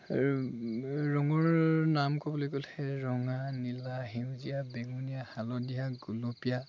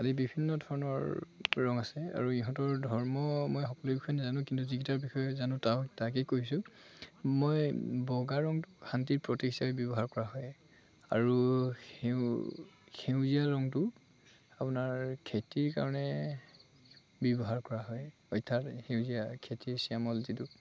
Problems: constant background noise, background conversations at intervals